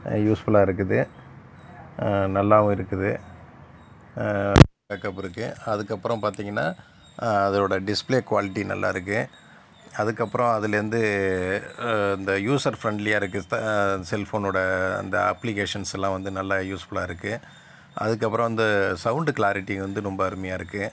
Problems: constant background noise